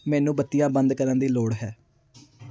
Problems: background sounds at intervals